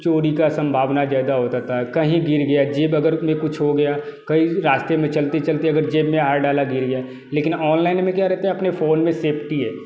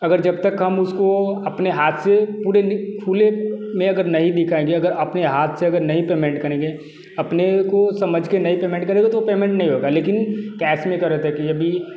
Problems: background sounds at intervals